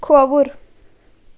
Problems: constant background noise